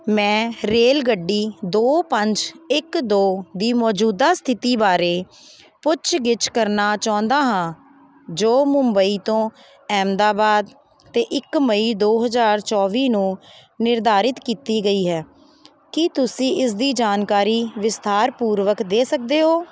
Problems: constant background noise